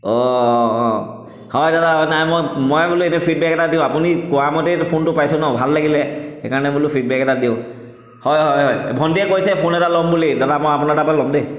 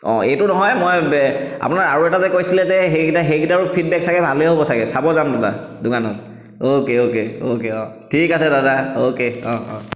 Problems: echo